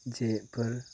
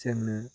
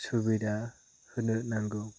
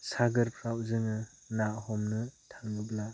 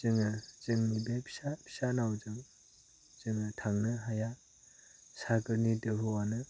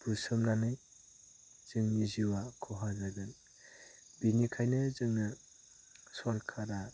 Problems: none marked